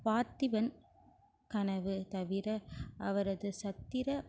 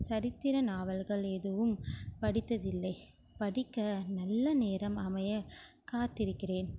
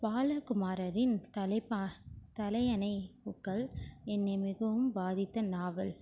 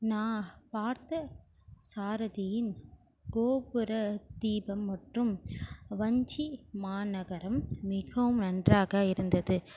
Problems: constant background noise